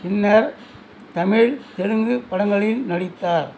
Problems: background sounds at intervals